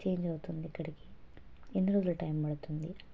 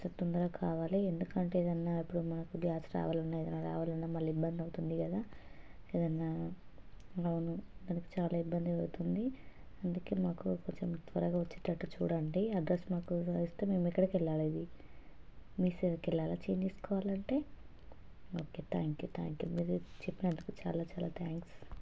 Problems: constant background noise, low volume